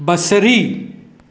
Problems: echo